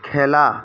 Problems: constant background noise, background conversations at intervals